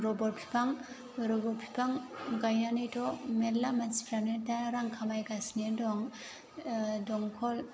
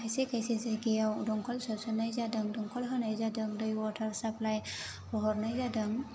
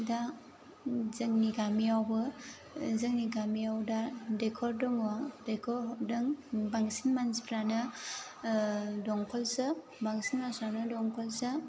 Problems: constant background noise